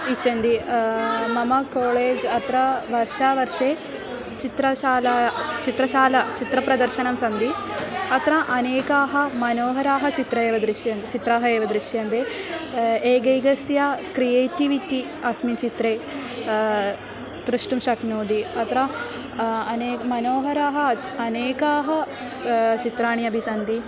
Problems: background sounds at intervals